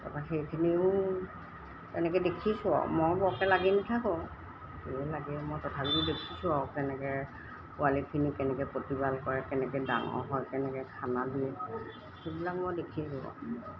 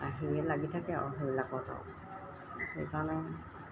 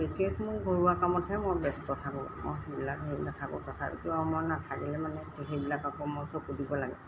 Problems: background sounds at intervals